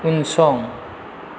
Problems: constant background noise